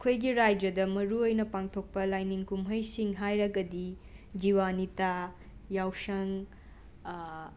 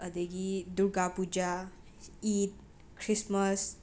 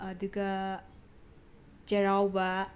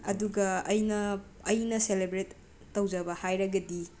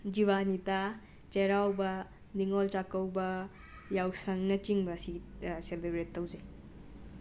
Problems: background sounds at intervals, background conversations at intervals